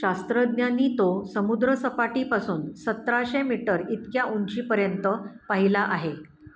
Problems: constant background noise, echo